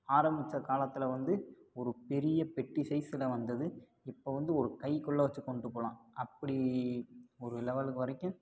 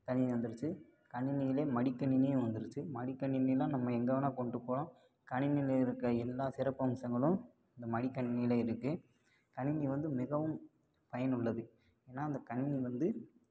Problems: low volume